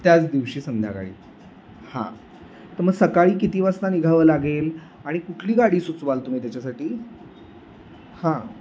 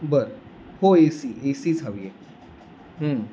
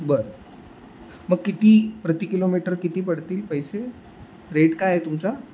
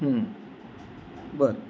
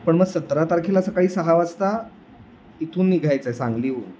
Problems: none marked